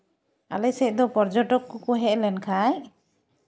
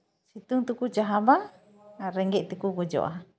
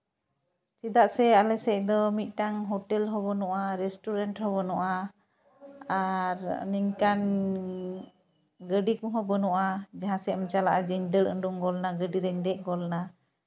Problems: background conversations at intervals